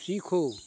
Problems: constant background noise